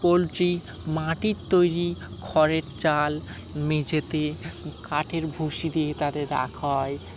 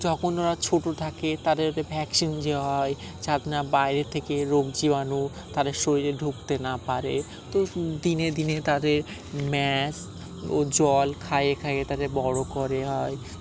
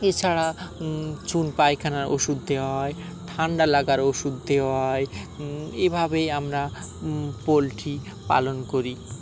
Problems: constant background noise